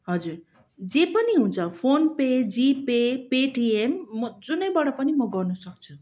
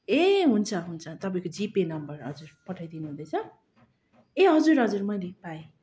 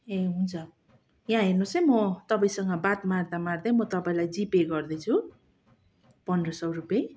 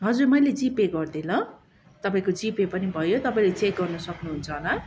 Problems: constant background noise